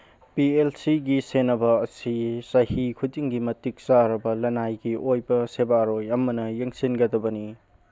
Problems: background sounds at intervals